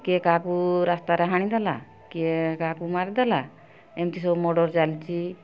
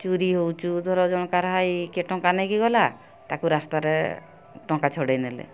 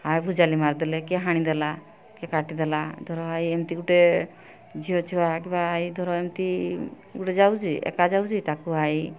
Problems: none marked